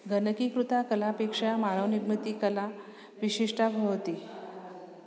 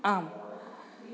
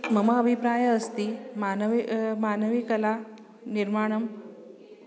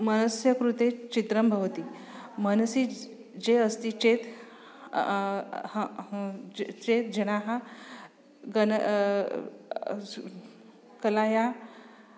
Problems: none marked